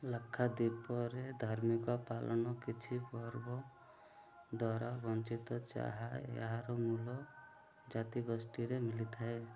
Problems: none marked